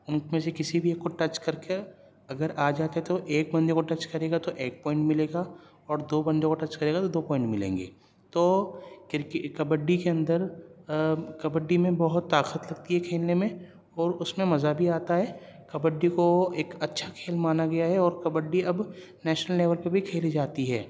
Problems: none marked